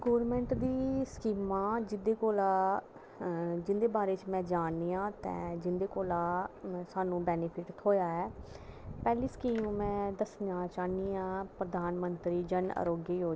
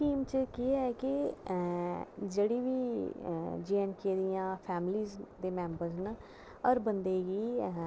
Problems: constant background noise